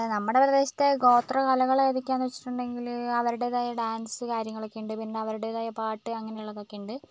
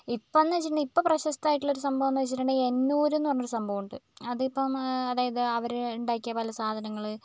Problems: none marked